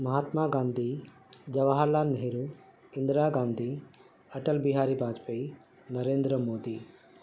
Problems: constant background noise